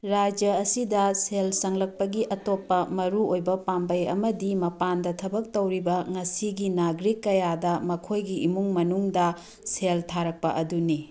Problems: background sounds at intervals